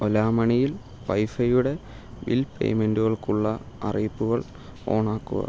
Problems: low volume